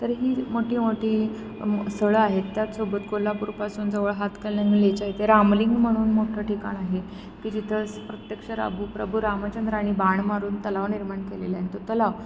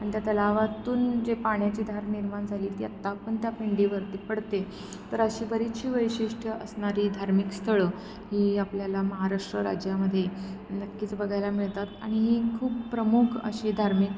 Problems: none marked